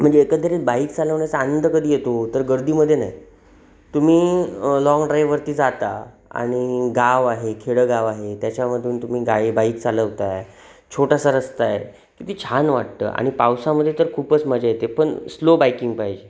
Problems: none marked